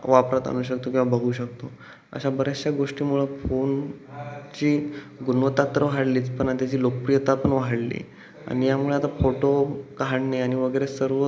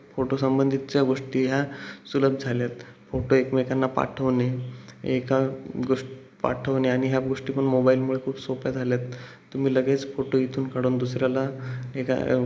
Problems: constant background noise, background conversations at intervals